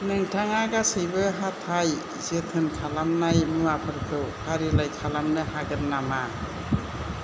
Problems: low volume